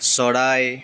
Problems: constant background noise